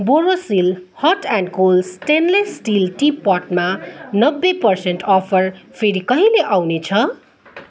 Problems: none marked